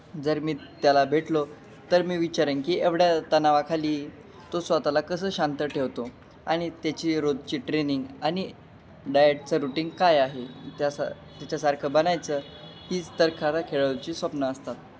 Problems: none marked